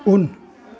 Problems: constant background noise